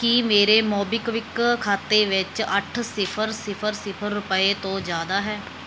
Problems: background sounds at intervals